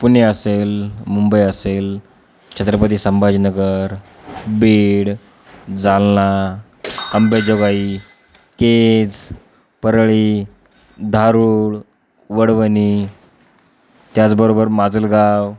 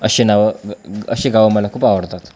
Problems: background conversations at intervals